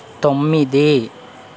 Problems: constant background noise